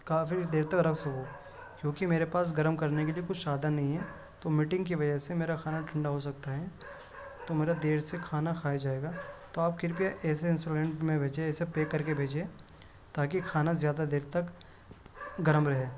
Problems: background sounds at intervals